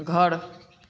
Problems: constant background noise